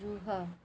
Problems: low volume